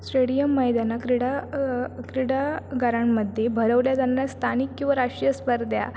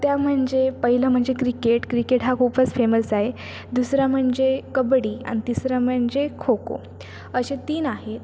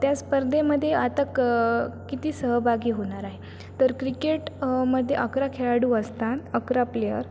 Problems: constant background noise